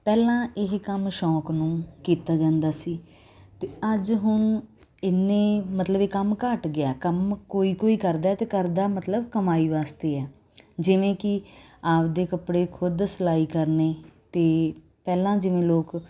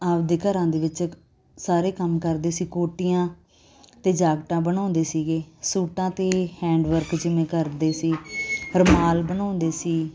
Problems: constant background noise